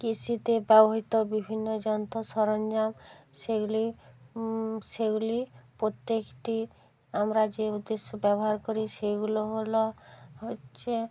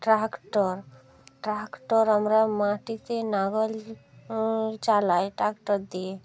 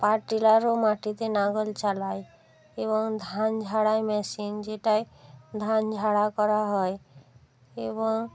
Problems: background conversations at intervals